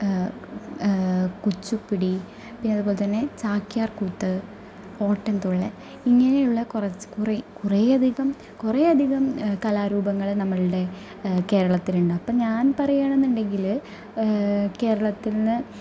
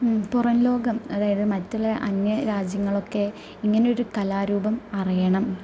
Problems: none marked